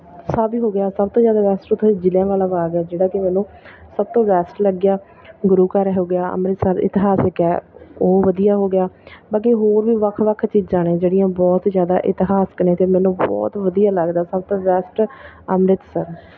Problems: none marked